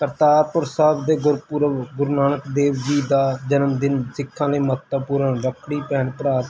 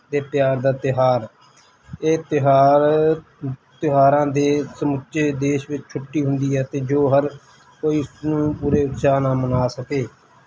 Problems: constant background noise